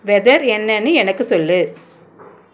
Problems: none marked